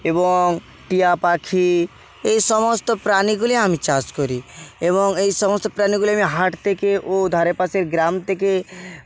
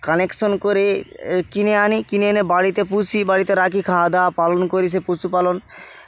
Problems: constant background noise